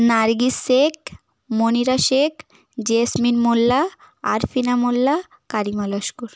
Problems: none marked